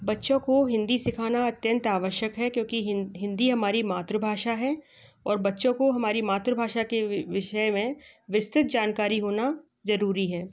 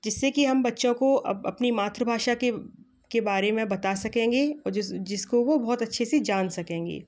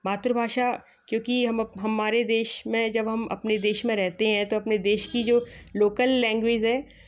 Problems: background sounds at intervals, background conversations at intervals